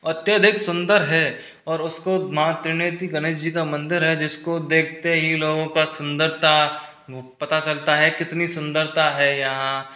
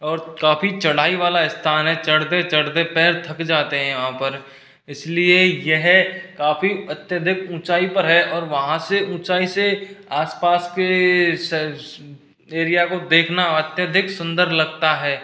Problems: none marked